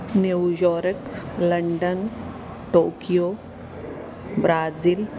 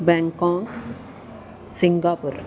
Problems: none marked